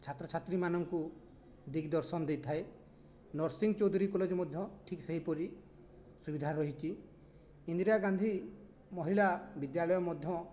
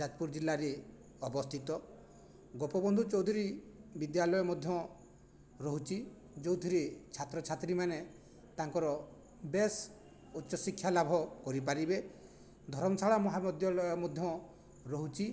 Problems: none marked